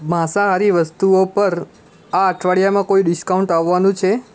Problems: constant background noise